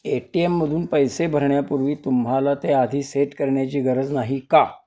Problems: none marked